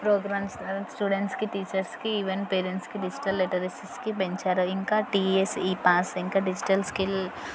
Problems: constant background noise, continuous background conversations